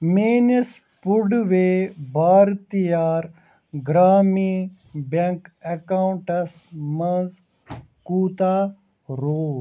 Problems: constant background noise